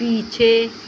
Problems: constant background noise